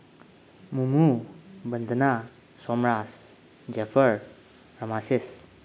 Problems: constant background noise